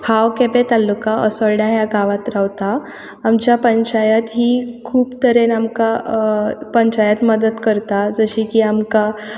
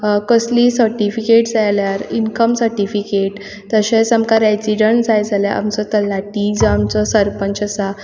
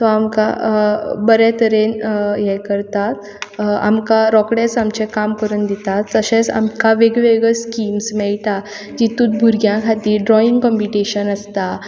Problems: background sounds at intervals